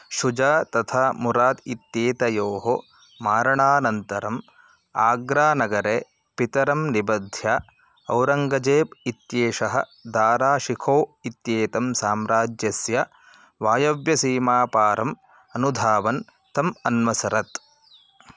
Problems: constant background noise